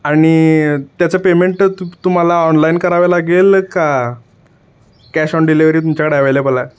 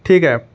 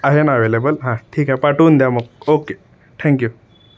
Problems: constant background noise